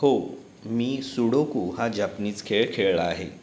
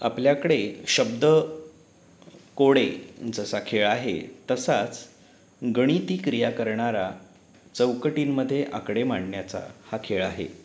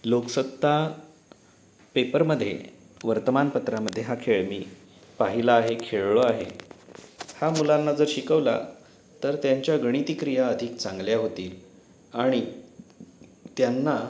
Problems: constant background noise